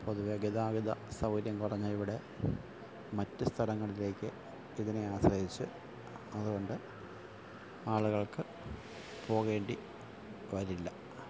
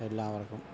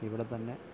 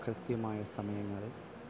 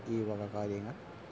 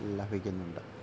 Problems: constant background noise, low volume